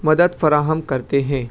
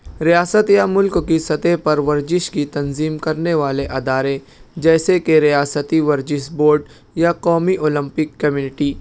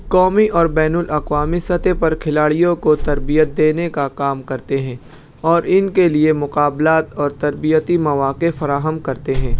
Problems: none marked